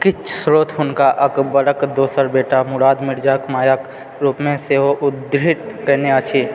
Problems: background sounds at intervals